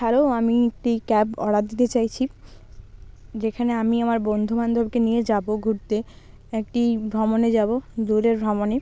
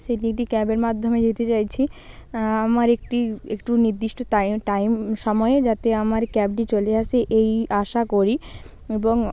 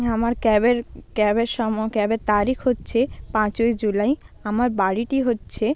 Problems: constant background noise